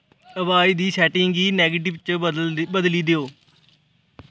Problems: background sounds at intervals